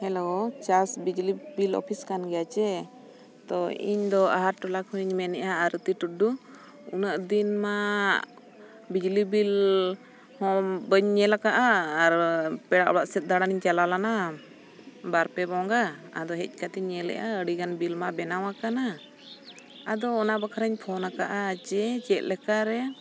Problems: background sounds at intervals